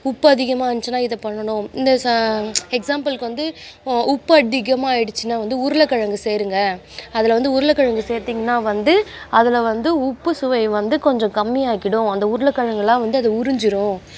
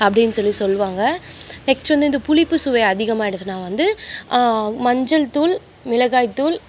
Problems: constant background noise